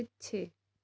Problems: none marked